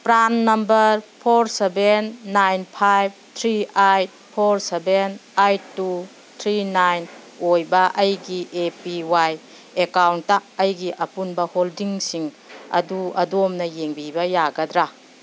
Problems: background sounds at intervals